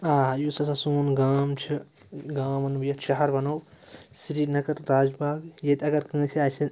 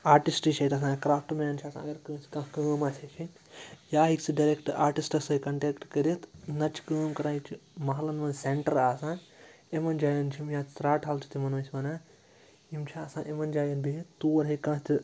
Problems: background sounds at intervals, background conversations at intervals